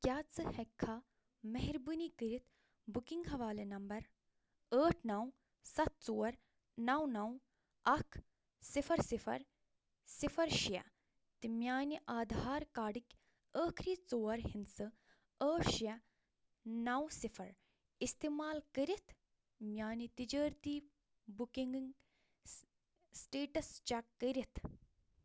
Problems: low volume